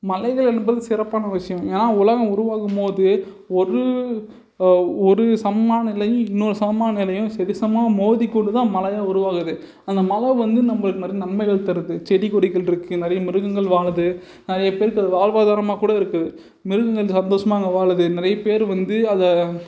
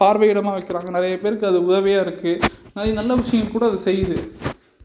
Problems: background sounds at intervals